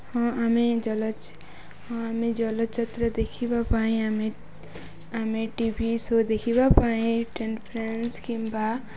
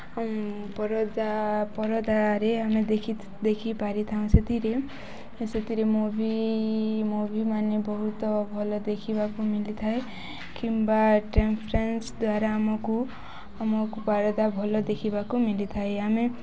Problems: none marked